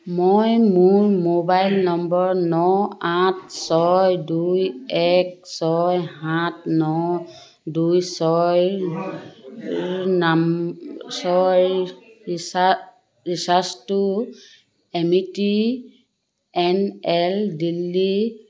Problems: none marked